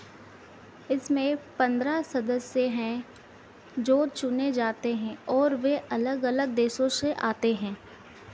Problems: constant background noise